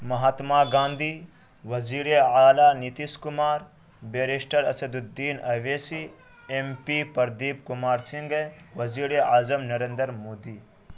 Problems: constant background noise